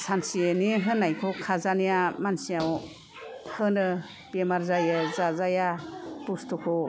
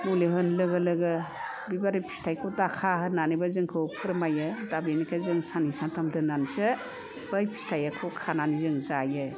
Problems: none marked